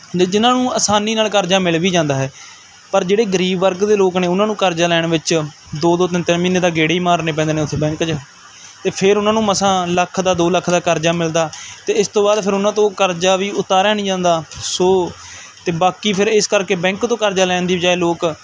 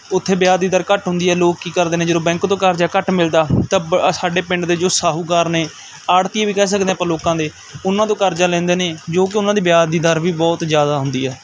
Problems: none marked